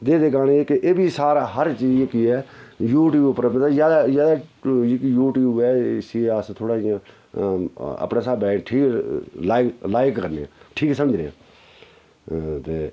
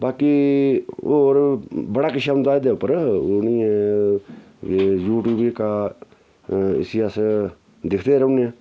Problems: background sounds at intervals